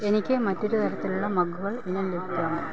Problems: constant background noise, low volume